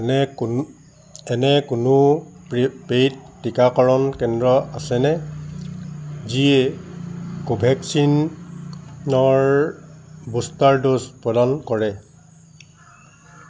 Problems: constant background noise